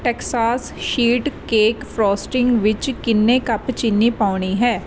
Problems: none marked